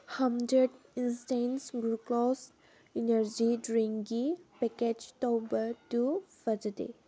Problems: background sounds at intervals